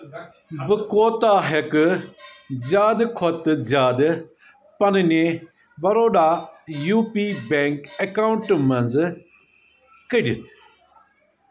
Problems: background sounds at intervals, background conversations at intervals